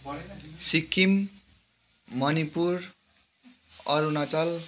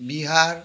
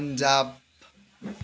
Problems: background sounds at intervals